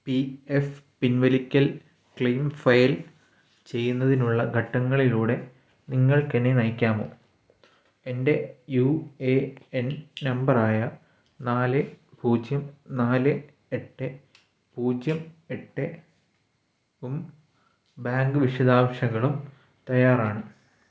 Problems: background sounds at intervals